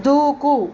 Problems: none marked